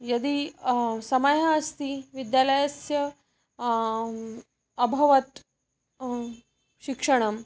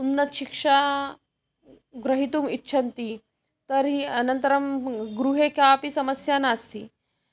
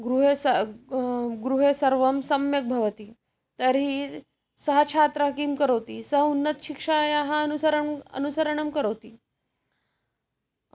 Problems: none marked